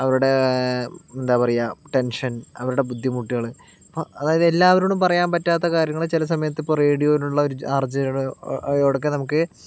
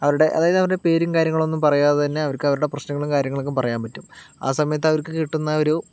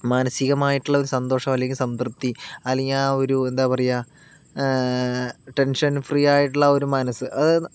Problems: none marked